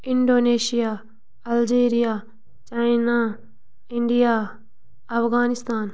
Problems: none marked